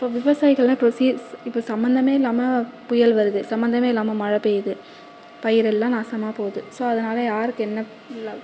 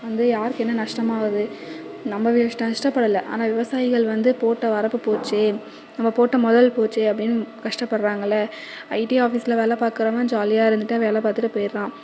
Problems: constant background noise, echo